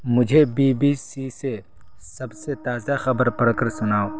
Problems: constant background noise